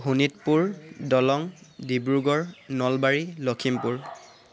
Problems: constant background noise